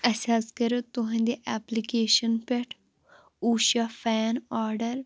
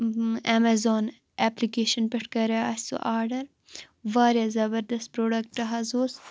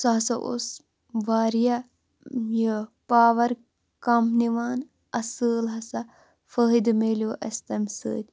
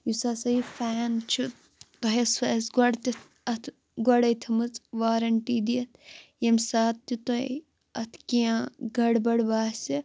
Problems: constant background noise